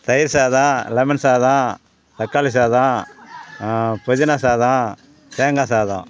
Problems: background sounds at intervals